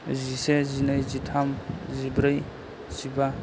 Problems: low volume